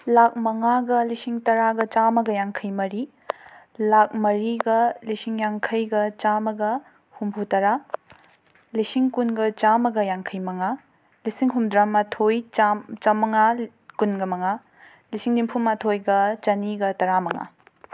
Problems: background sounds at intervals